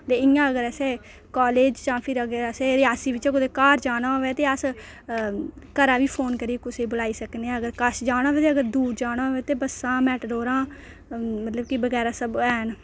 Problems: low volume